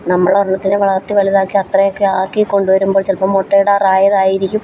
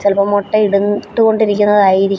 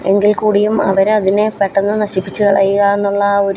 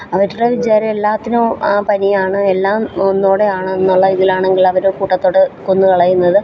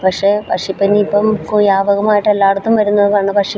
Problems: background sounds at intervals